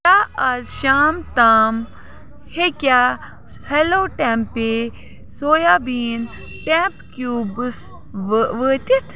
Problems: constant background noise, background conversations at intervals